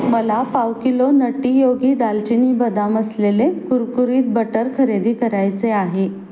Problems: constant background noise